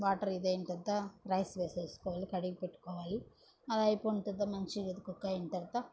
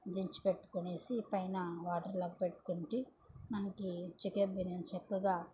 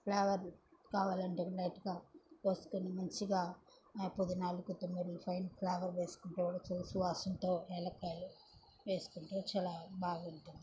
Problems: low volume